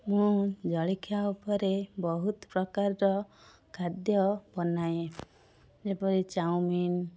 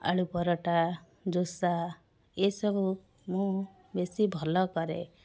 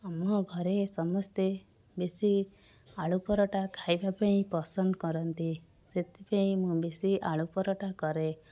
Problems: constant background noise, background conversations at intervals